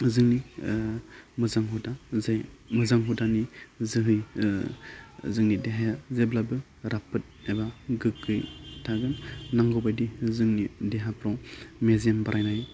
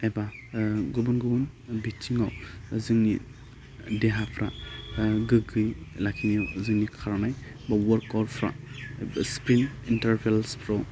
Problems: none marked